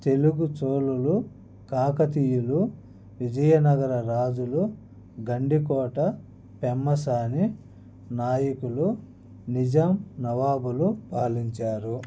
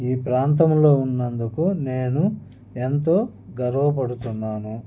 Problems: background conversations at intervals